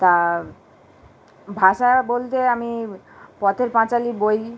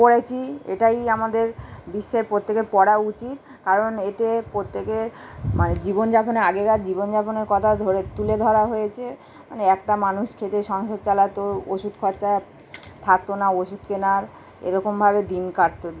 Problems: constant background noise